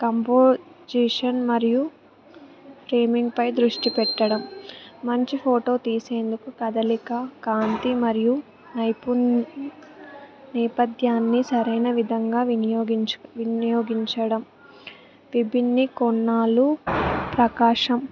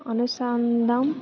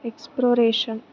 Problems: background sounds at intervals, background conversations at intervals